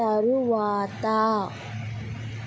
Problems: constant background noise